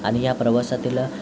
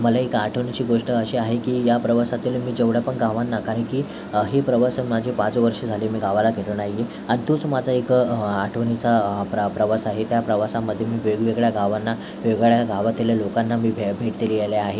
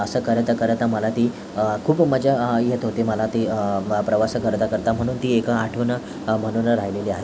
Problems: constant background noise